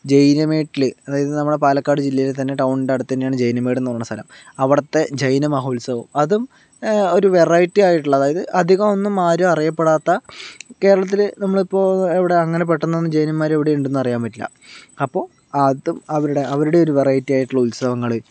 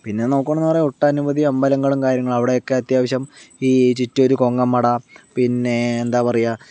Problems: none marked